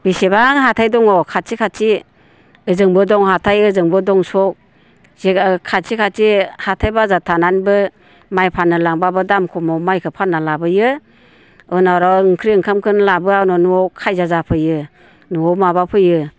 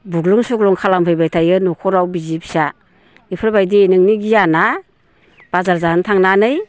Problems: constant background noise